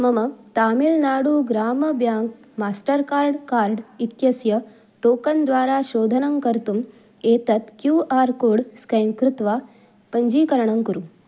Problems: none marked